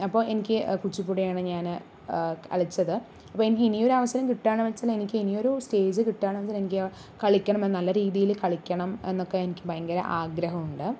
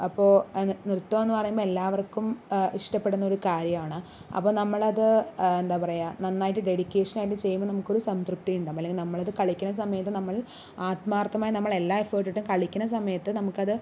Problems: none marked